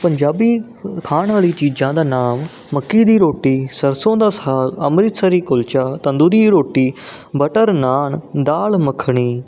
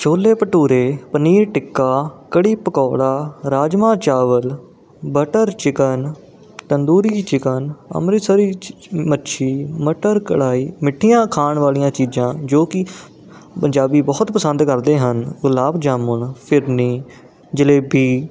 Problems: constant background noise